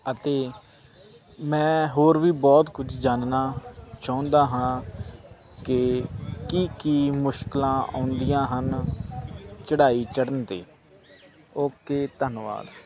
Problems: constant background noise